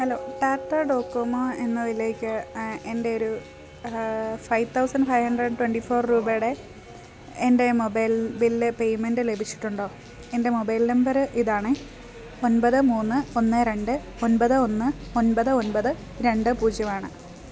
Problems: background sounds at intervals